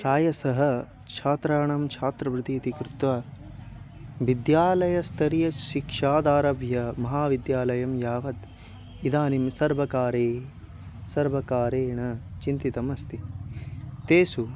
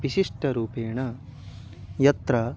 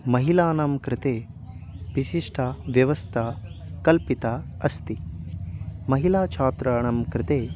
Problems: constant background noise